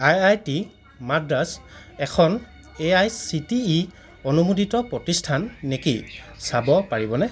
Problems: constant background noise, continuous background conversations